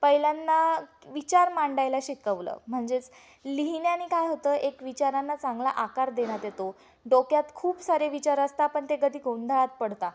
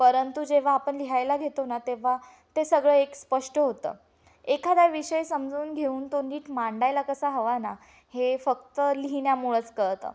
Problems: background sounds at intervals